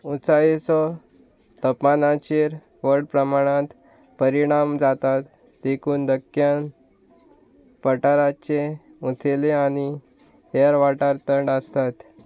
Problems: constant background noise